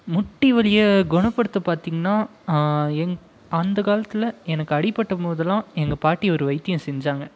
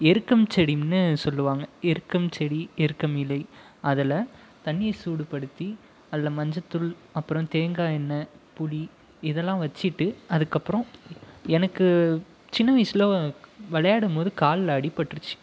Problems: background conversations at intervals